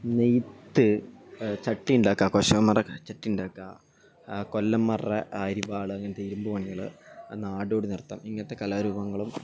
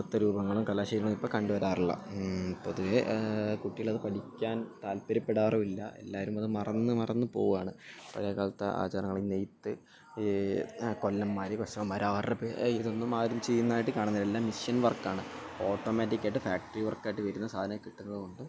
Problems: background sounds at intervals, low volume